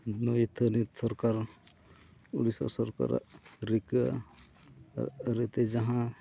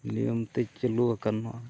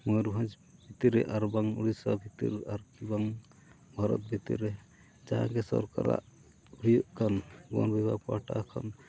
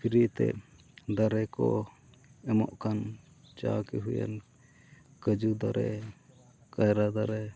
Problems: low volume